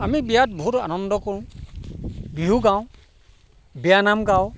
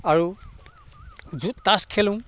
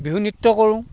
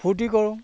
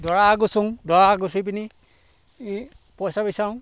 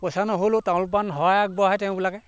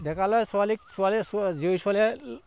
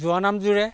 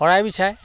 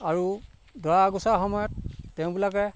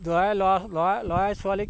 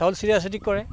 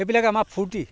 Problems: background sounds at intervals